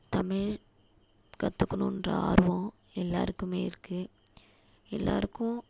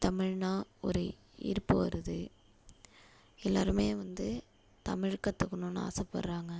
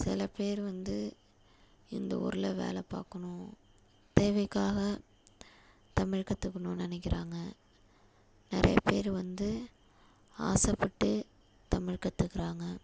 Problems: constant background noise